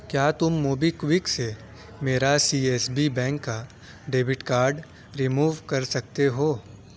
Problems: none marked